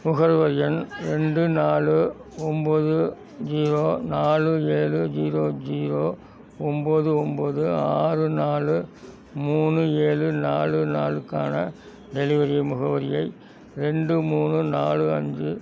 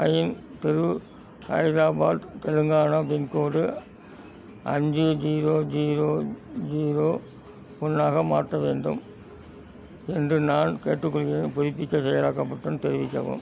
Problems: constant background noise